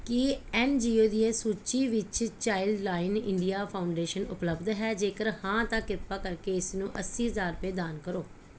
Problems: none marked